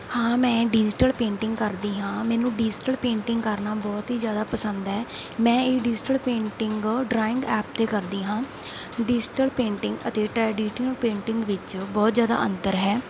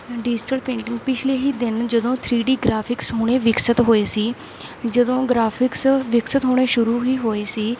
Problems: constant background noise